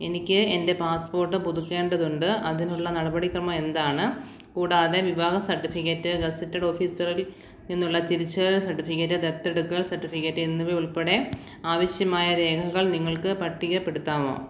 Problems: none marked